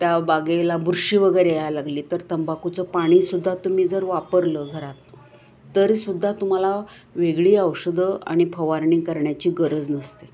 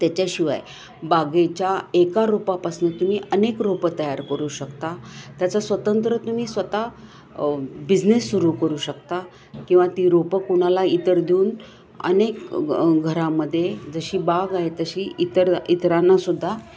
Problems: background sounds at intervals